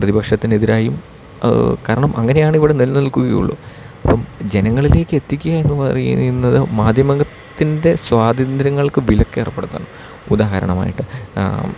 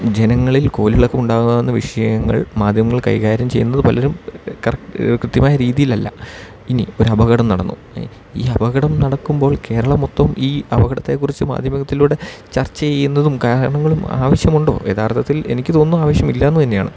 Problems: none marked